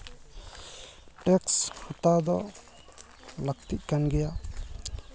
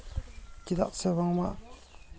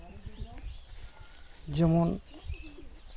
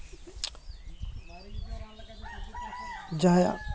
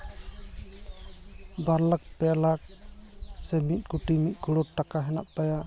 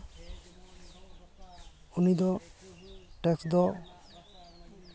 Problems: constant background noise, continuous background conversations